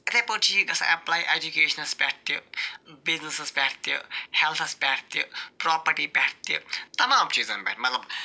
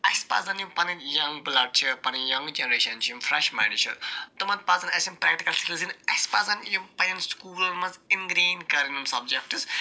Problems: none marked